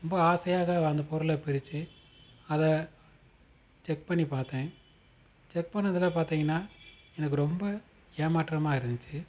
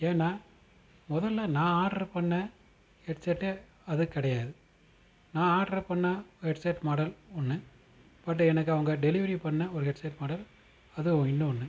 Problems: constant background noise